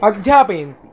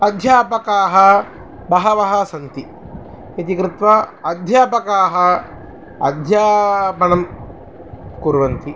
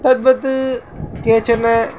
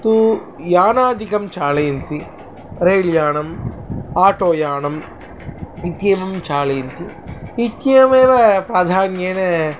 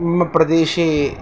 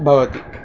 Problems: constant background noise